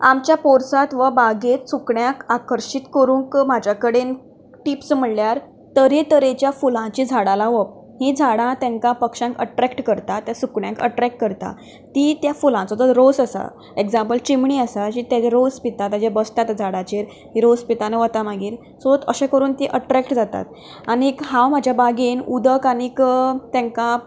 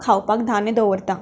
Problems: background sounds at intervals